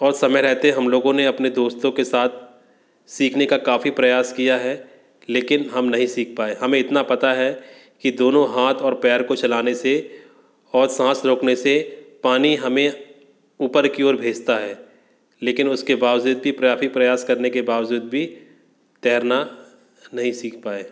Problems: constant background noise